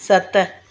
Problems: none marked